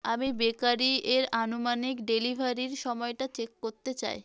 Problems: constant background noise